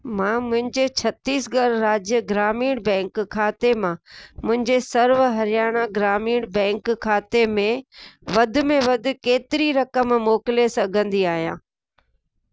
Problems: constant background noise